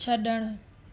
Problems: constant background noise